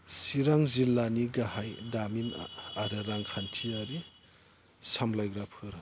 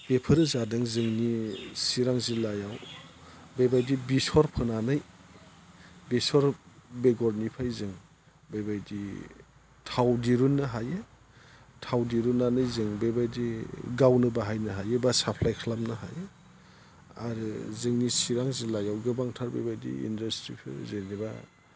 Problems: low volume